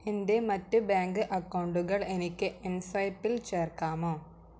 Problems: none marked